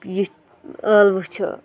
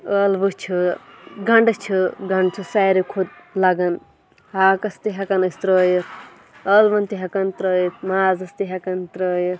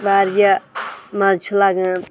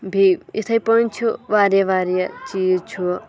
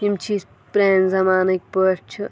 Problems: background sounds at intervals, background conversations at intervals